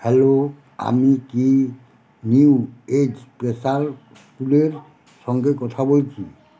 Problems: constant background noise, background conversations at intervals